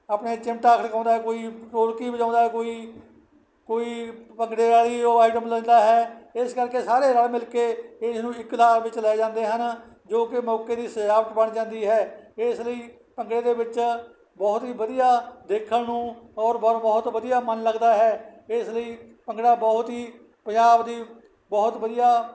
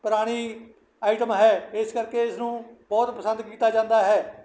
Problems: none marked